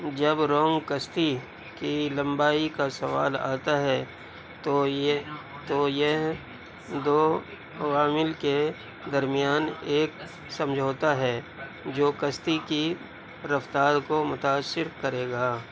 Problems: none marked